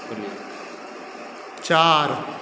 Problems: continuous background conversations